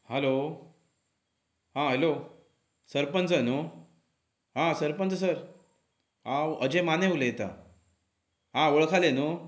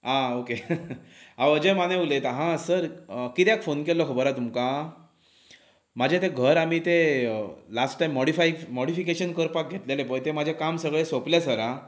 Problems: background sounds at intervals